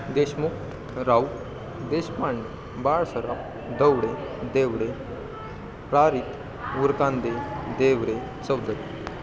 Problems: constant background noise, continuous background conversations